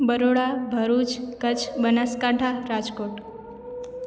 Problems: constant background noise, echo